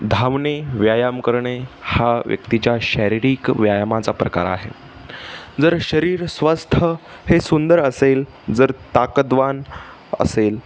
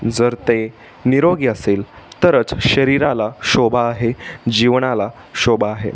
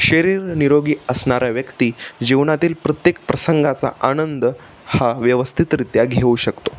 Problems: none marked